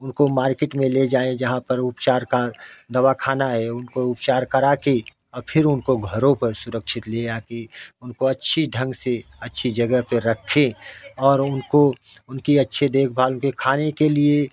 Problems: background sounds at intervals, background conversations at intervals